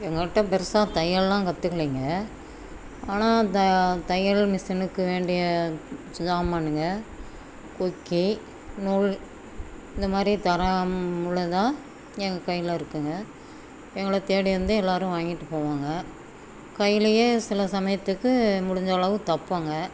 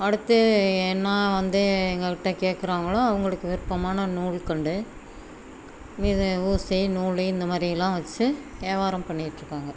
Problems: background sounds at intervals